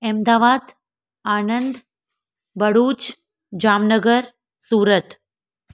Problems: none marked